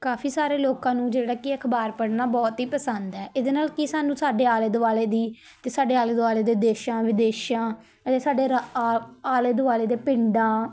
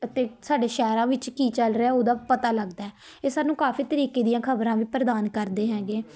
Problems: none marked